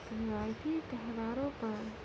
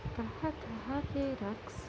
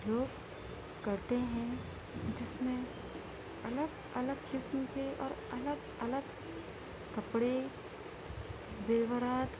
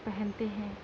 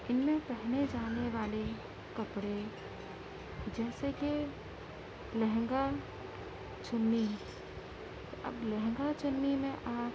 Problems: constant background noise